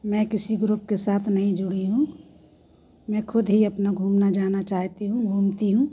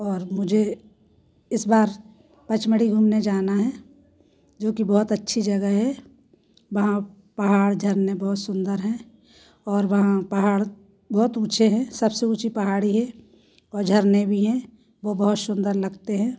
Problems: none marked